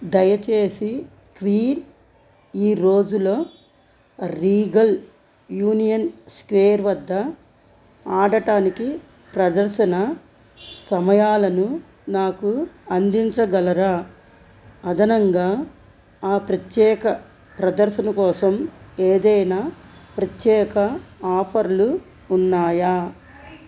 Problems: constant background noise